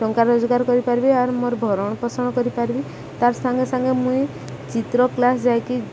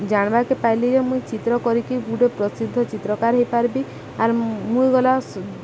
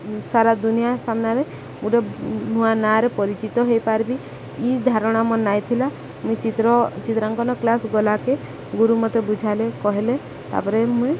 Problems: constant background noise, background conversations at intervals